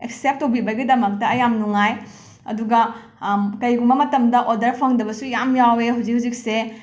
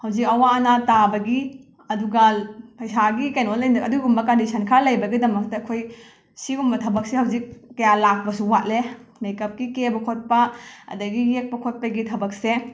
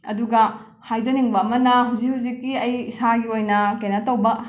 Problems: background sounds at intervals